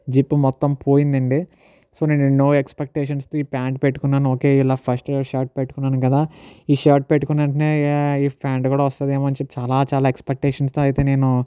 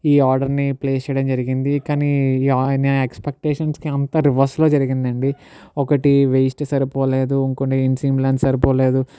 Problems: none marked